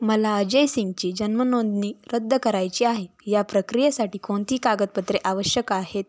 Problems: background sounds at intervals